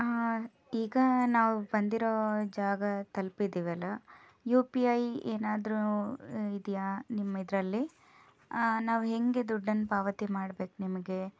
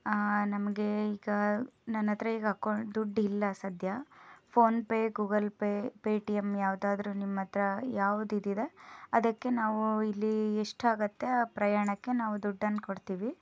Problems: background sounds at intervals